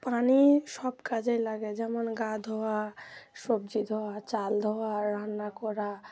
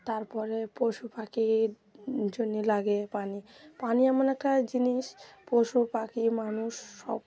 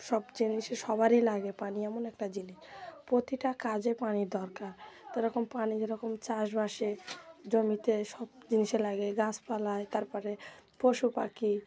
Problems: none marked